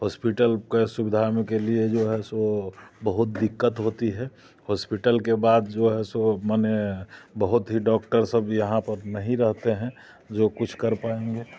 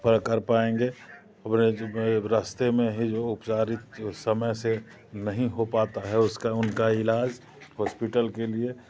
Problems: none marked